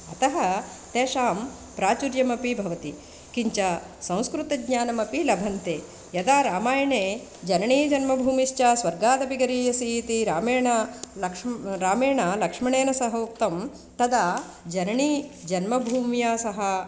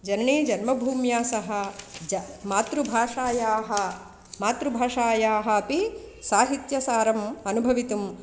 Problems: constant background noise